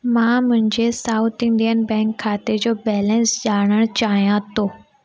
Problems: constant background noise